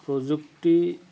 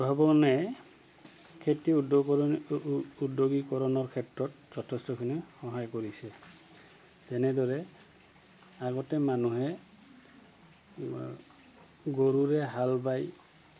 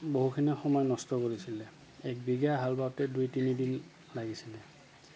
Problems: constant background noise